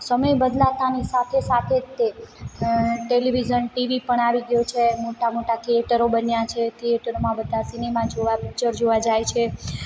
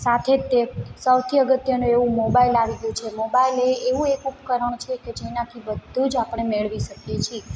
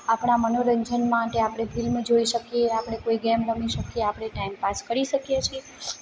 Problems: background sounds at intervals